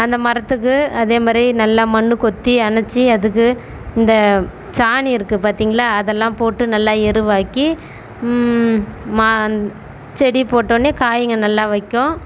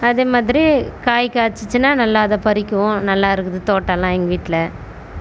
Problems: constant background noise